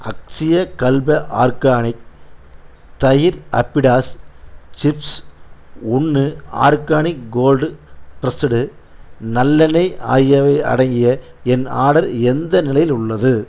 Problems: none marked